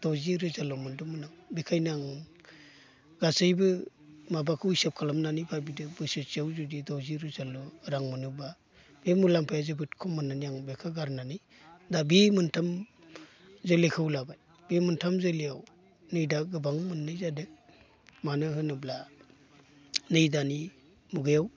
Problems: constant background noise